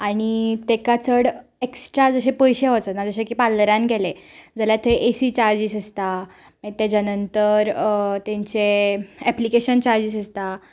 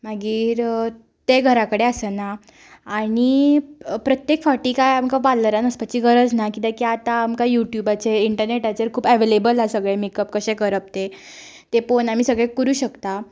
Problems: none marked